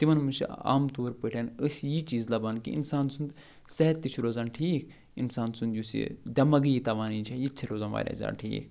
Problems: none marked